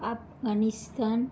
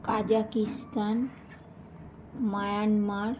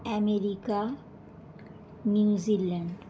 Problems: background conversations at intervals